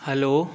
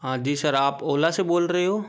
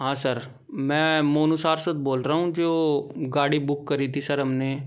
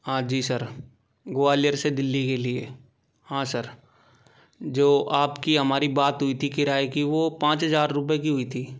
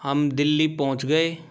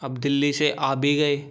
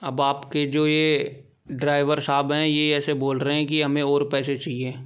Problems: background sounds at intervals